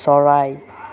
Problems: none marked